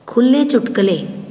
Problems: background sounds at intervals